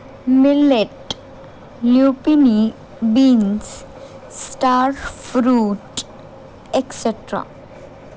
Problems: none marked